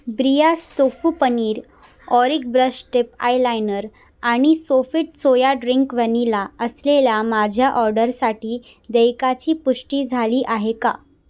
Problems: background sounds at intervals